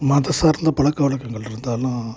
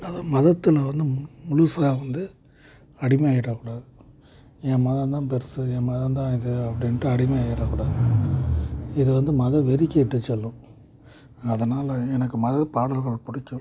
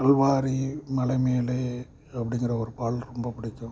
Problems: constant background noise